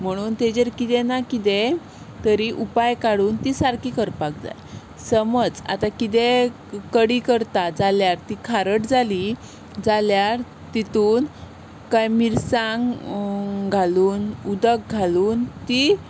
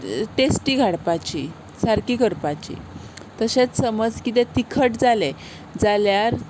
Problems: none marked